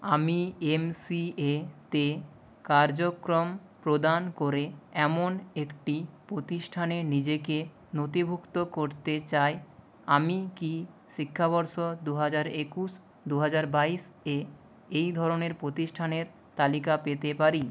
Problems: constant background noise